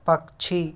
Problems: constant background noise, background conversations at intervals